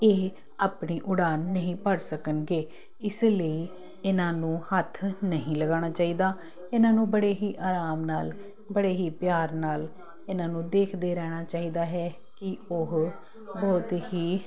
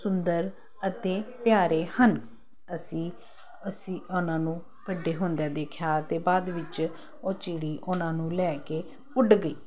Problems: constant background noise